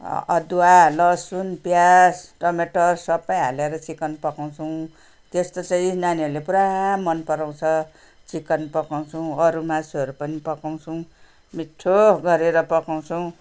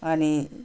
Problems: none marked